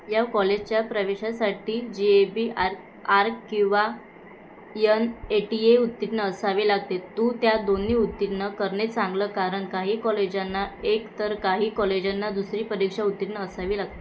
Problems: constant background noise